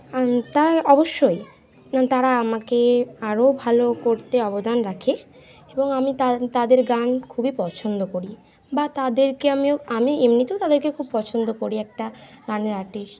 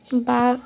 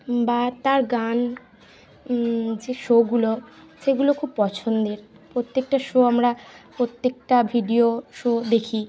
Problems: continuous background conversations